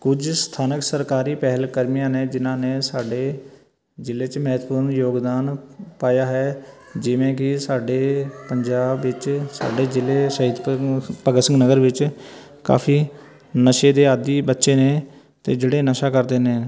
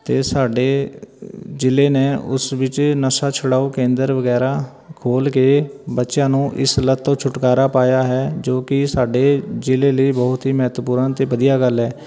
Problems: background conversations at intervals